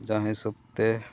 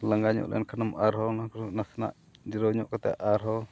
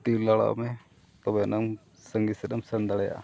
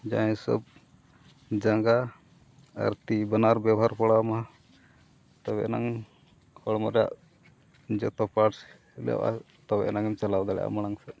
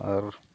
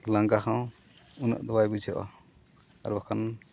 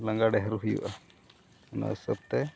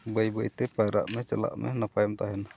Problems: background sounds at intervals, background conversations at intervals